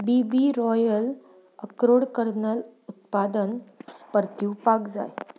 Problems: background sounds at intervals